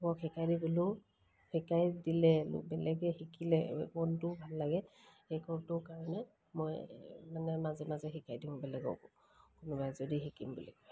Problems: none marked